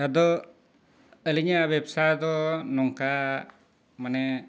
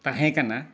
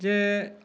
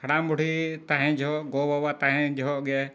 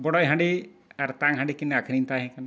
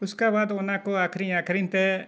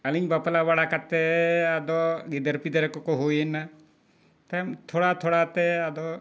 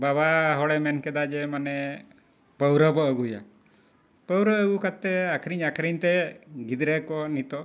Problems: none marked